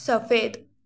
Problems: background sounds at intervals, background conversations at intervals